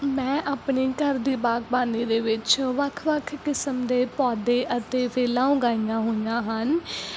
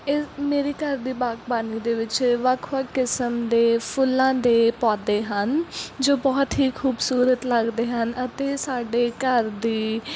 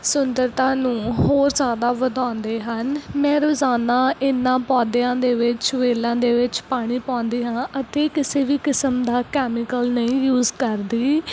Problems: none marked